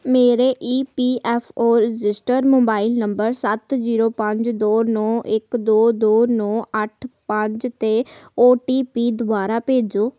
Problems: background sounds at intervals